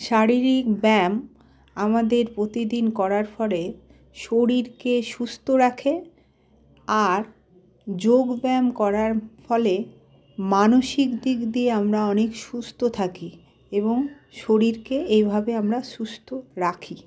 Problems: background sounds at intervals